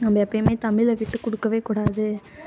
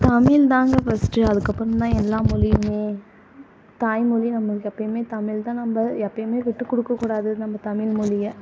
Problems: continuous background conversations